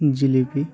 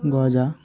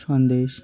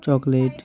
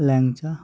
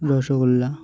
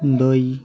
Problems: continuous background conversations